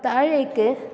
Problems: constant background noise